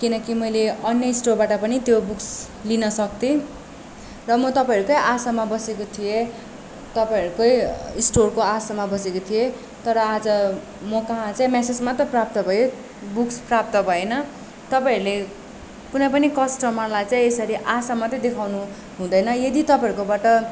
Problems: background sounds at intervals